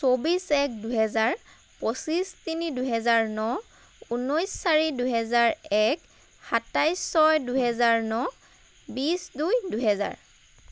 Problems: constant background noise